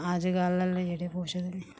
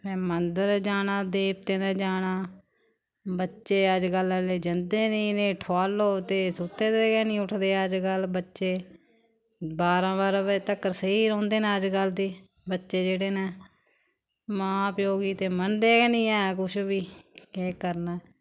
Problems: none marked